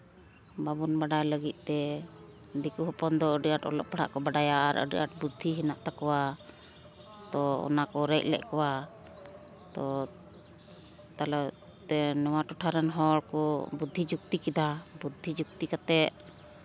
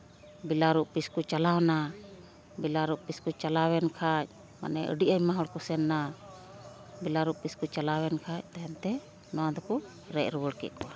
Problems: constant background noise